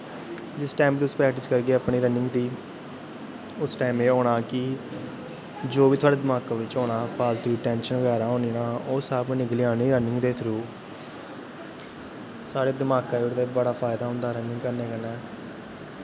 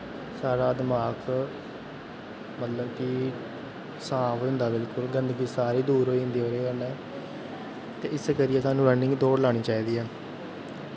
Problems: constant background noise